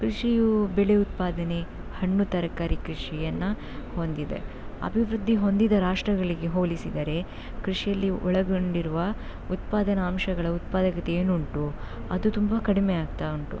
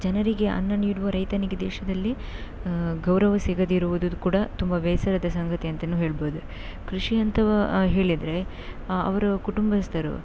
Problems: none marked